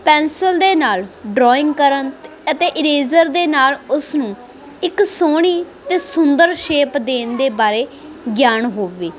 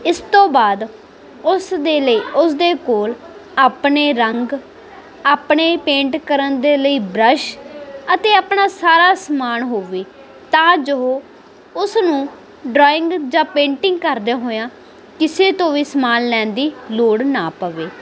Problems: constant background noise